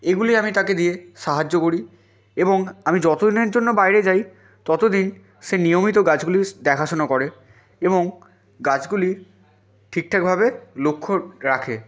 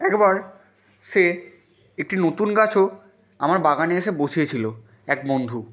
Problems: background sounds at intervals, continuous background conversations